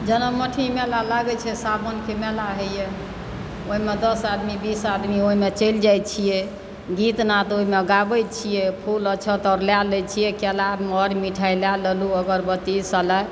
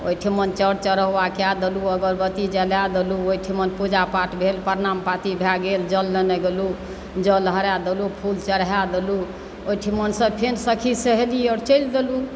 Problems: constant background noise